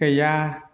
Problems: none marked